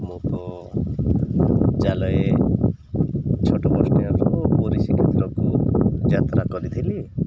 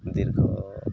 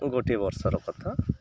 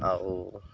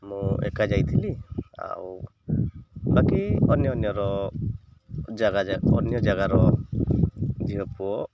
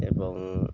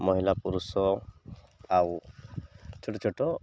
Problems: none marked